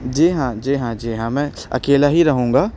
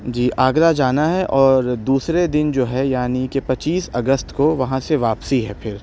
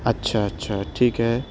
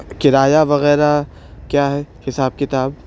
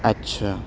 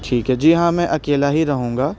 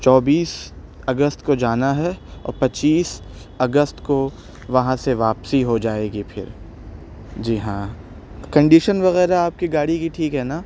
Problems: constant background noise